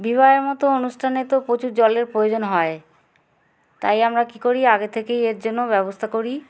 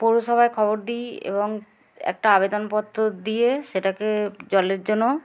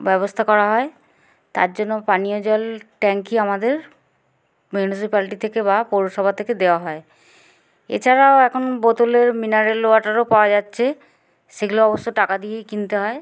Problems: constant background noise